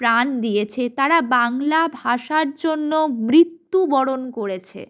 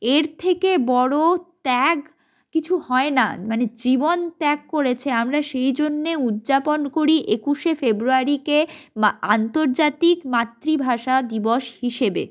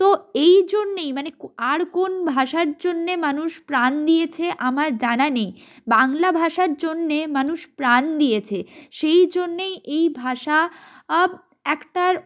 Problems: none marked